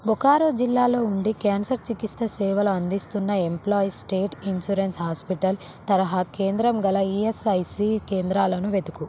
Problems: constant background noise